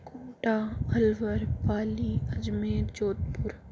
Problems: low volume